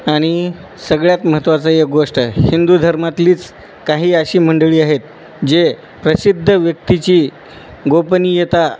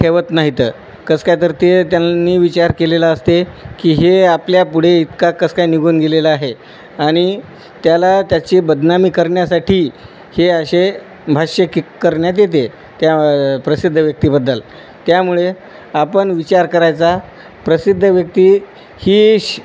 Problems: constant background noise